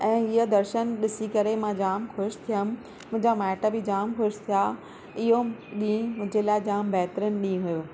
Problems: constant background noise